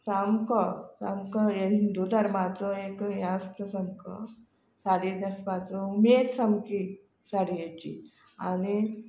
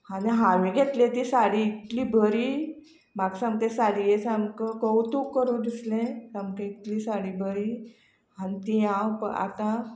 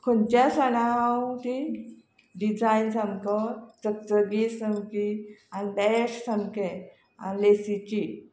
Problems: none marked